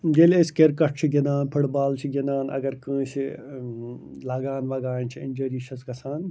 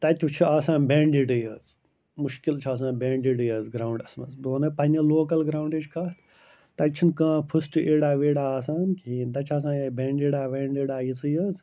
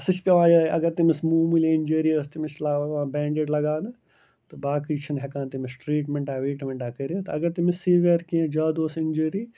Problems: constant background noise